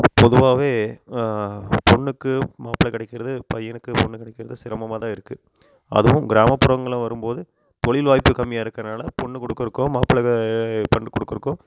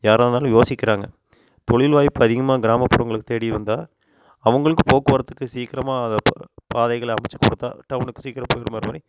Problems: background sounds at intervals